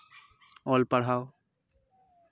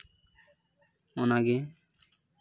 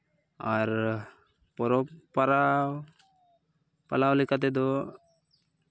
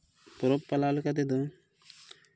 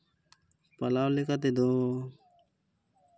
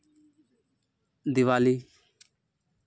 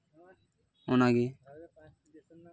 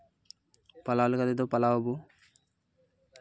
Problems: none marked